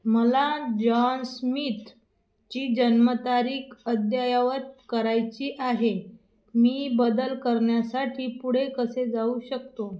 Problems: none marked